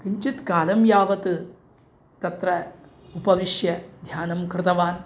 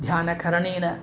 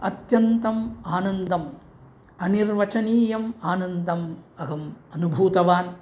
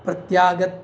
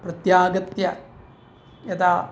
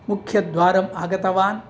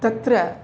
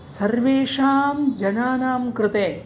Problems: none marked